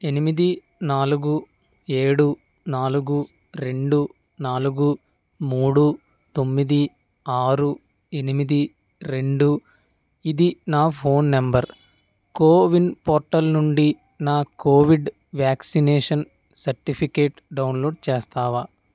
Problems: background sounds at intervals